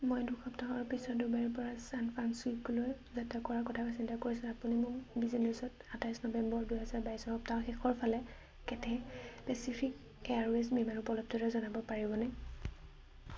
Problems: low volume